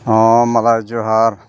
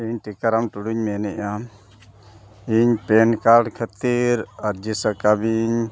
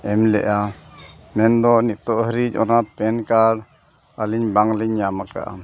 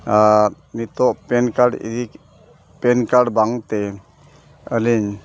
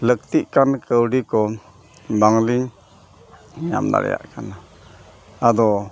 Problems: none marked